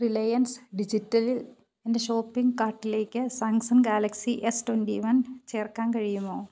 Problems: none marked